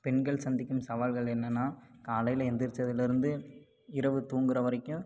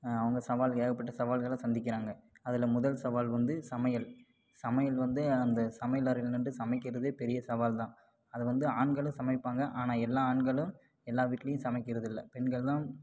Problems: background sounds at intervals